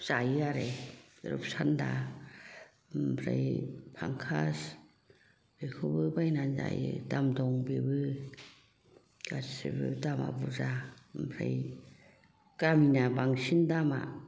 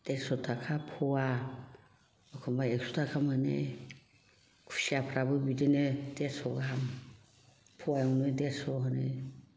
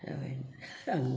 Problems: background conversations at intervals